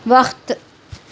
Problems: none marked